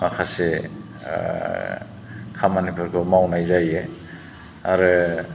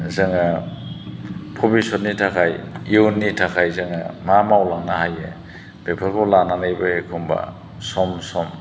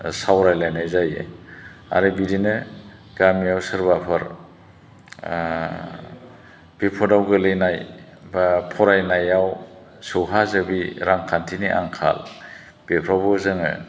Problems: none marked